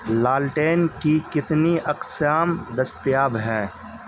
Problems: constant background noise